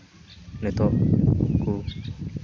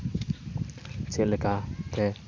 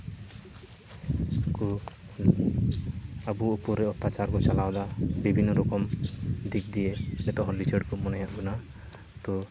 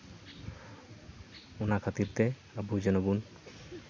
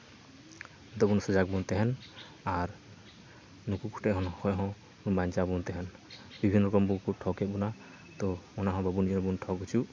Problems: constant background noise, background conversations at intervals